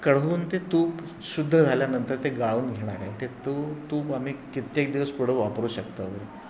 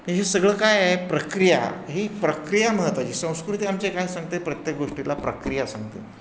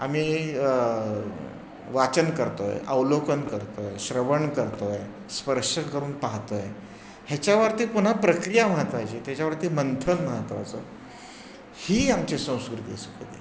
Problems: constant background noise, background conversations at intervals